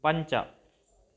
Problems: none marked